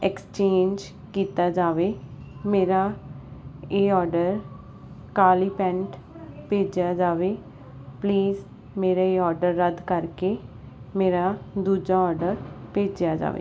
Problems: constant background noise